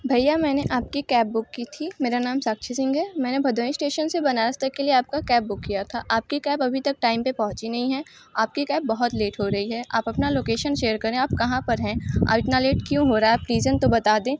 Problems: constant background noise